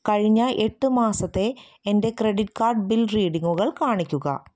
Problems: none marked